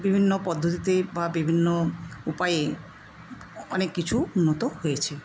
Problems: constant background noise